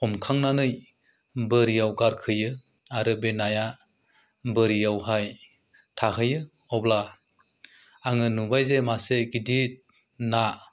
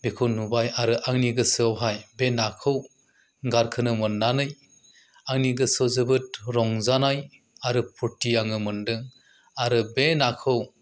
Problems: low volume